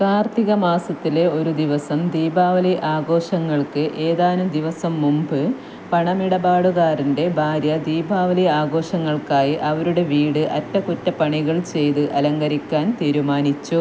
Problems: constant background noise